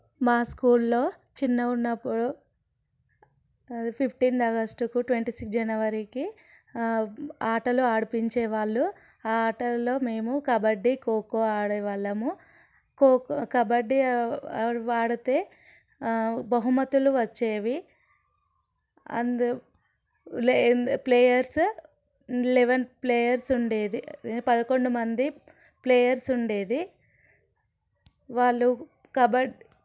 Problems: none marked